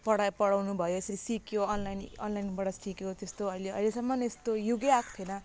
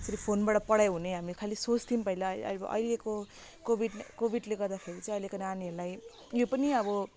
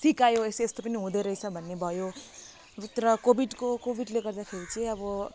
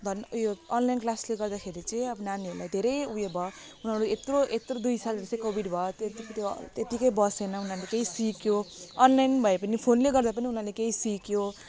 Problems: background sounds at intervals